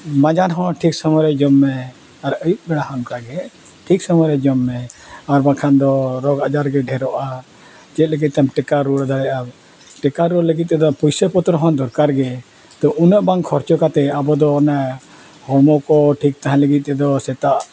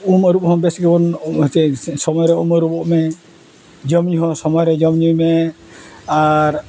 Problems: none marked